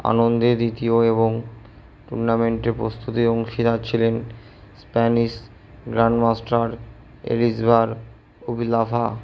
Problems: none marked